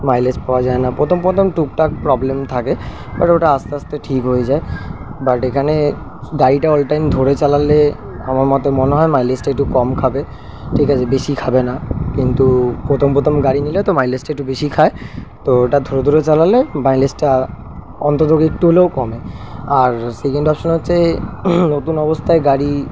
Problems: none marked